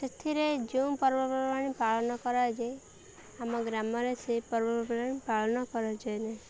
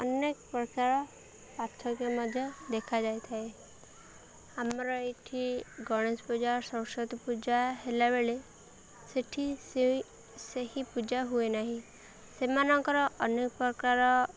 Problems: none marked